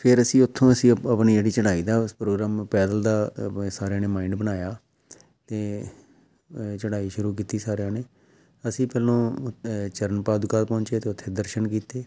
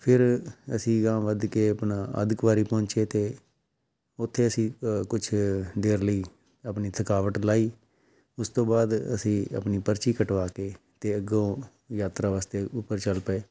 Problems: background sounds at intervals